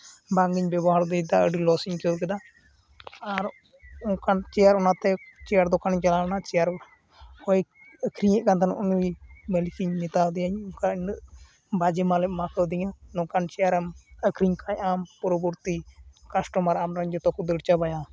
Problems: none marked